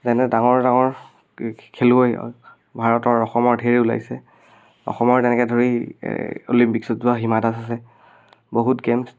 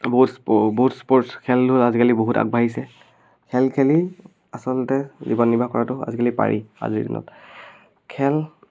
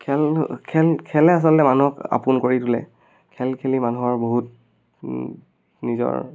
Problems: none marked